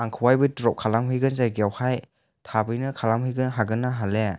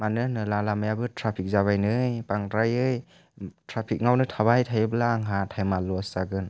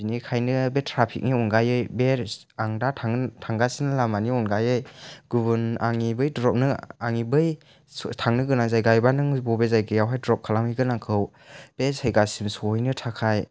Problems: none marked